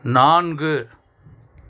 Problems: none marked